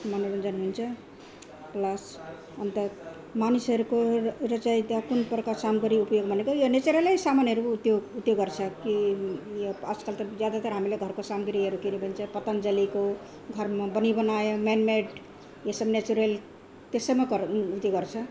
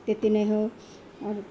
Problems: continuous background conversations